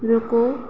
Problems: none marked